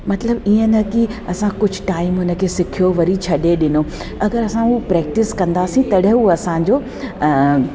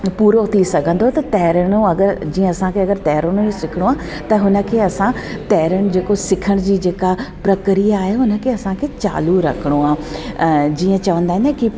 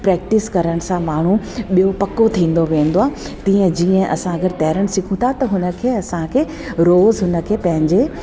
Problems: constant background noise